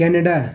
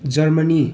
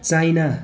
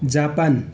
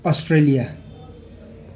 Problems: continuous background conversations